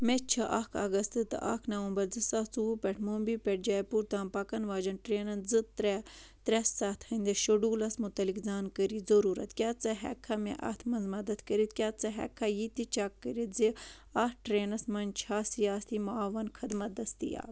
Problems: none marked